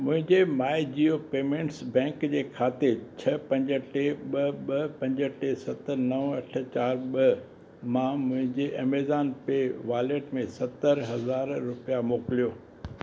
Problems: none marked